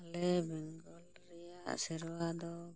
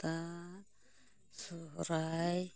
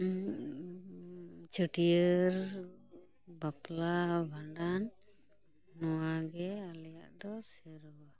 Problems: background conversations at intervals, low volume